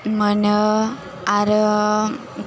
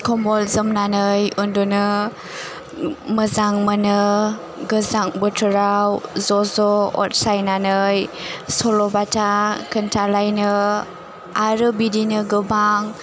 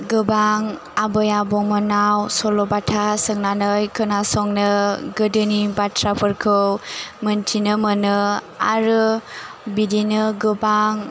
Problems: none marked